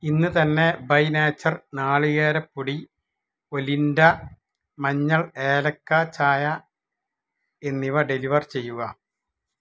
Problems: none marked